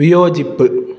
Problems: none marked